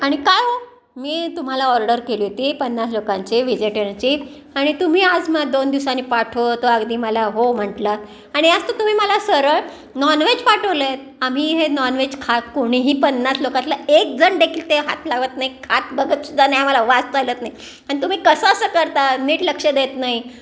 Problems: background sounds at intervals, background conversations at intervals